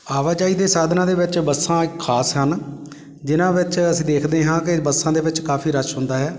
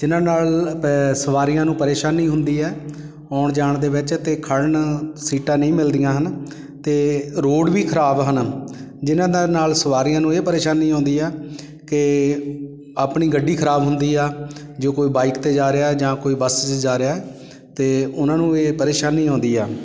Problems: background sounds at intervals